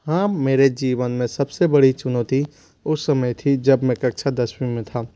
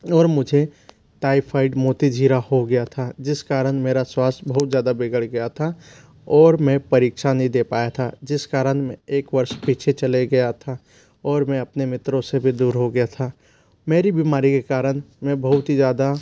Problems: low volume